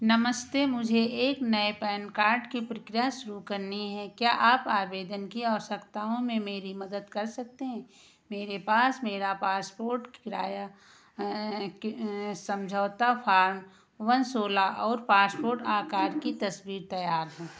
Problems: background sounds at intervals